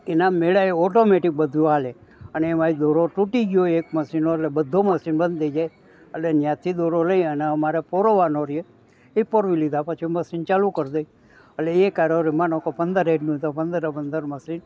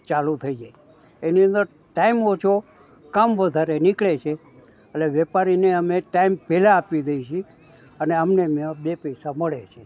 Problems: background conversations at intervals